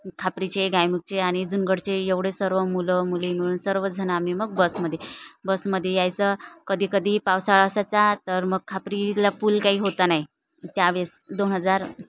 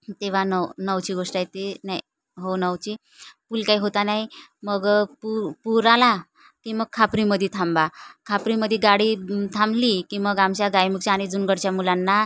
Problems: none marked